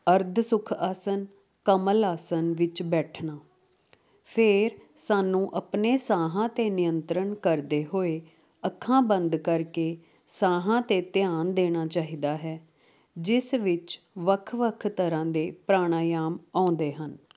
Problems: constant background noise